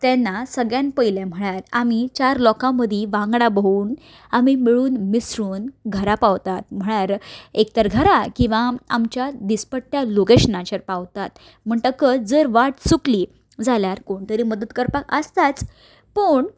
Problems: background sounds at intervals